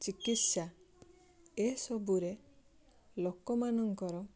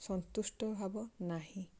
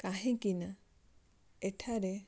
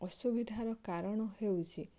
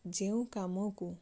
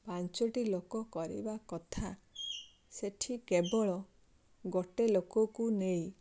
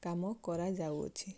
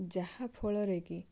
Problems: background sounds at intervals